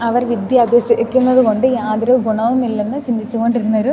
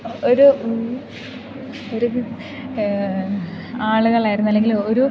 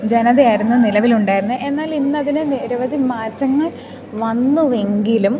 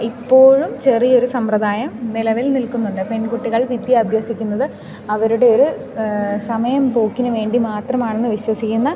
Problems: background sounds at intervals